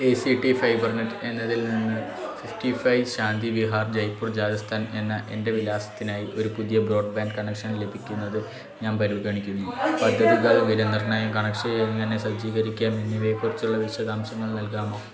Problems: continuous background conversations